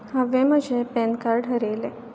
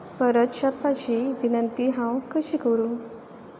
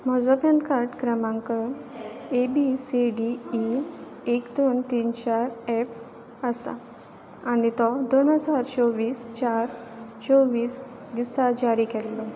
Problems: constant background noise